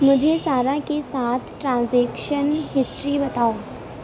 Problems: none marked